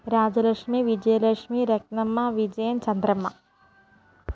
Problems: constant background noise, low volume